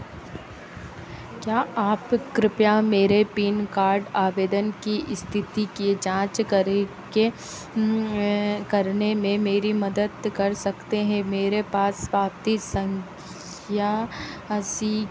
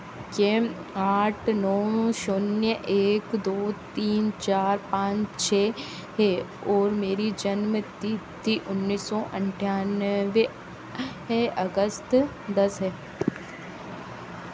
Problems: none marked